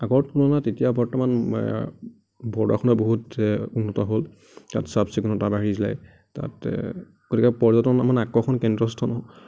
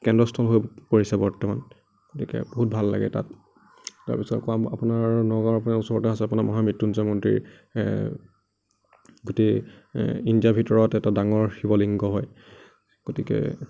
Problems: none marked